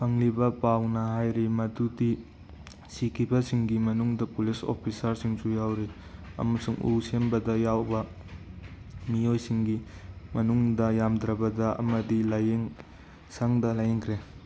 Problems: background sounds at intervals